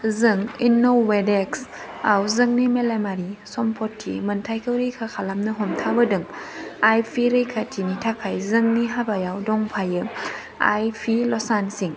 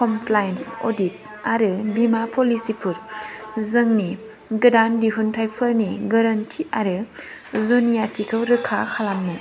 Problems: none marked